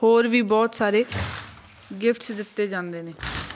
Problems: constant background noise, background conversations at intervals